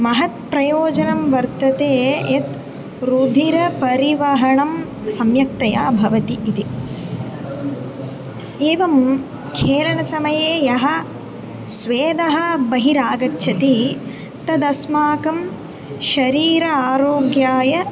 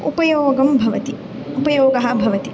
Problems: constant background noise